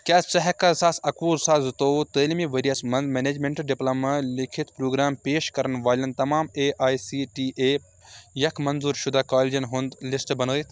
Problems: background sounds at intervals